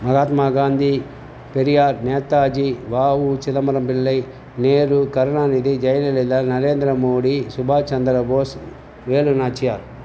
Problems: none marked